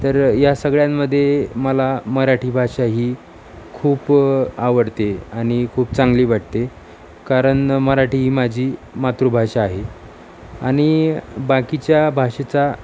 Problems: none marked